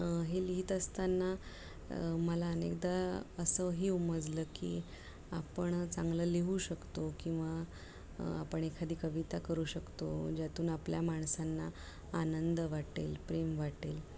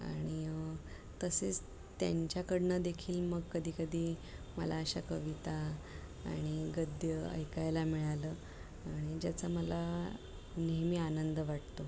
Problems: constant background noise